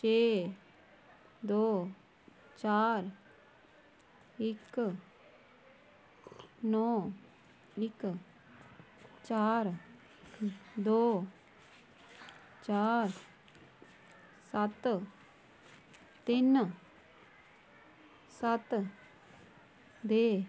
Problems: low volume